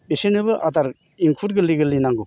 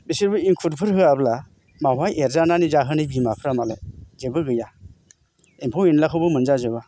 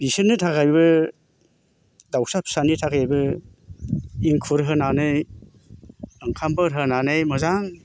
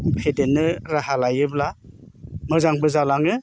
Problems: none marked